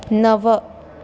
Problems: constant background noise